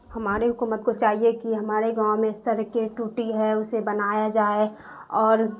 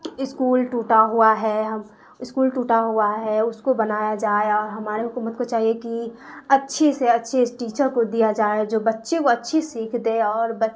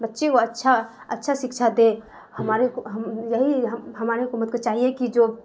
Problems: constant background noise